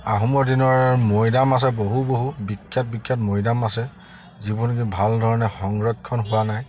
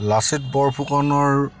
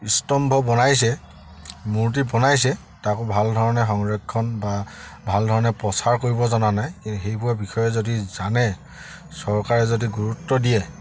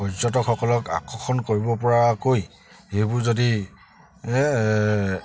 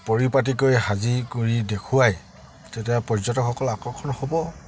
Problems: background sounds at intervals